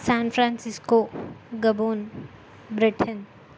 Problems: constant background noise